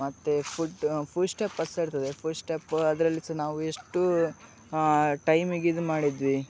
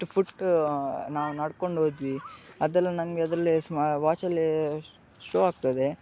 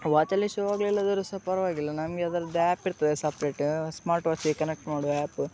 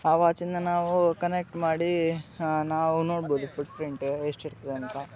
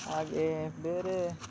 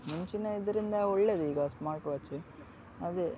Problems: background sounds at intervals